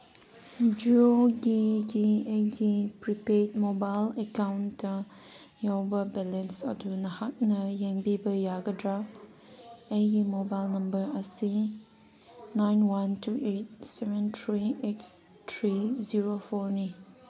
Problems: background conversations at intervals